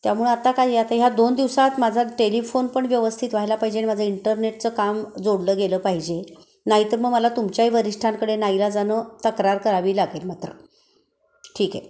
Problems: none marked